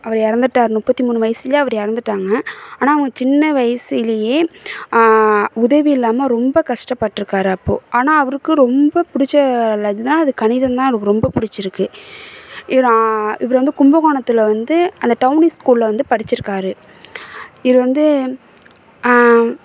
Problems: background sounds at intervals